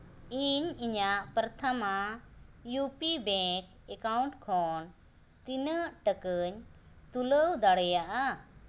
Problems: constant background noise